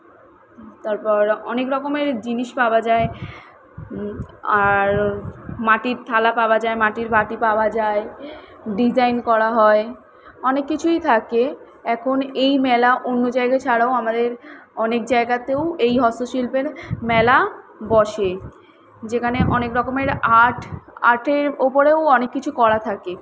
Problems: none marked